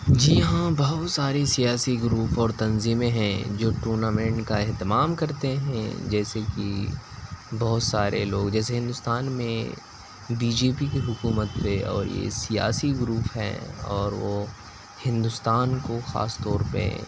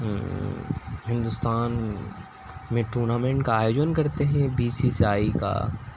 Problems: constant background noise, low volume